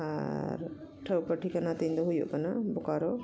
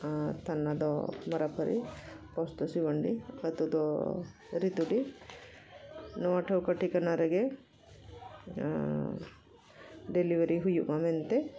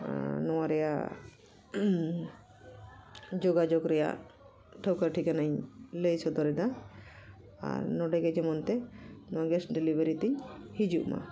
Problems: continuous background conversations